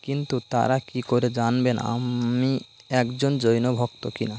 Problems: none marked